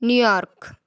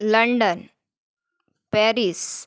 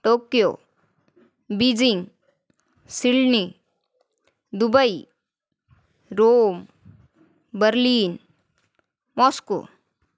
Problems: constant background noise